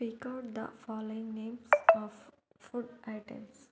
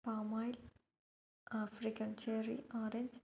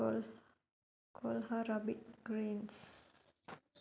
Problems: none marked